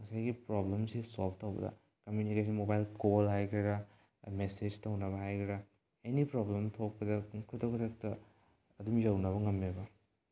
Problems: low volume